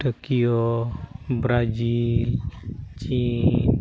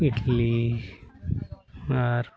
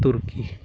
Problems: background sounds at intervals, continuous background conversations